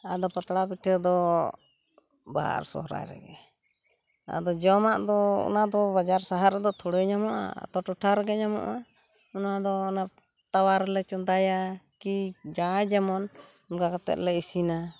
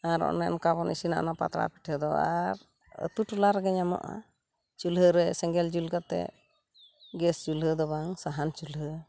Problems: background sounds at intervals